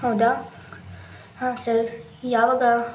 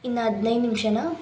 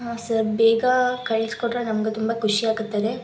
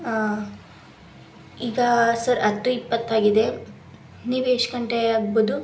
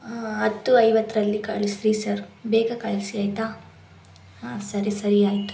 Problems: constant background noise